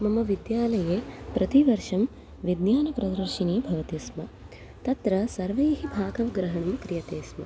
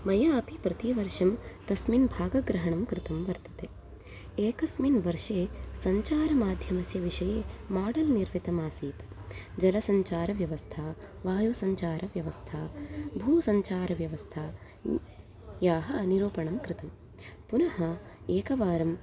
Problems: background sounds at intervals